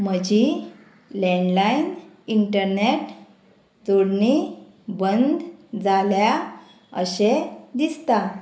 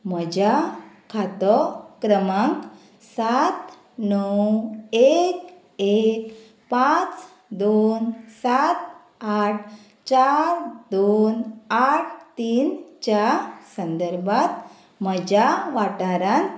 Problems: none marked